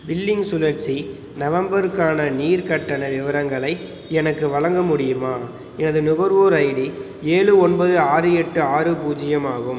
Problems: background sounds at intervals